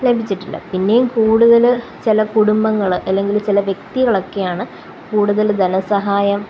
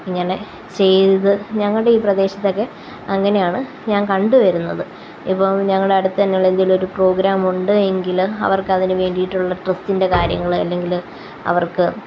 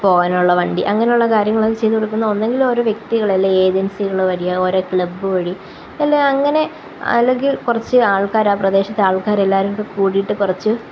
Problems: constant background noise, low volume